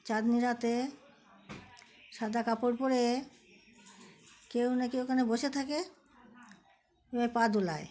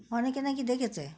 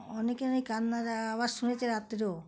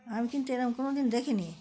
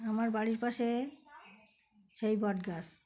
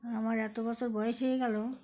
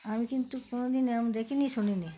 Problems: none marked